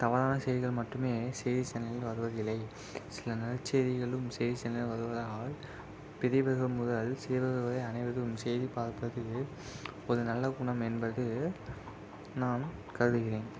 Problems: constant background noise, low volume